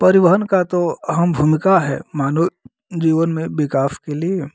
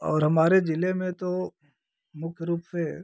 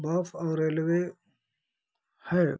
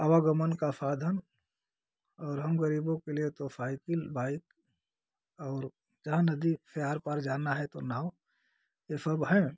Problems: none marked